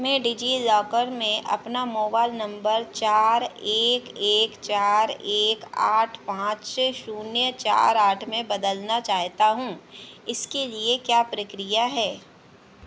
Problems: none marked